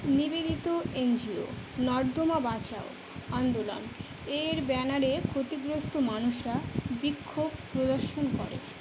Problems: none marked